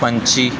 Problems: none marked